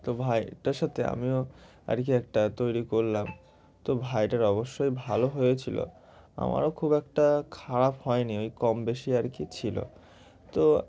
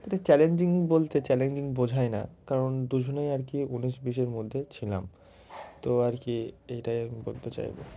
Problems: none marked